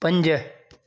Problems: none marked